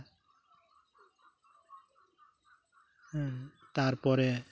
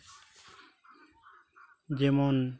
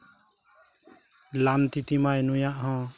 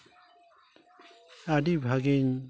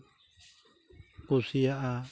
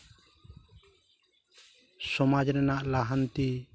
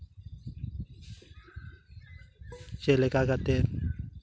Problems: none marked